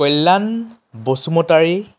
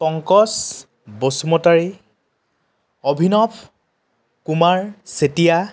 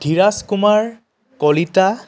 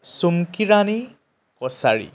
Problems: none marked